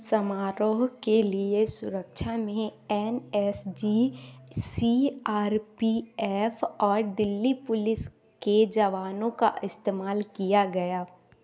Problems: background sounds at intervals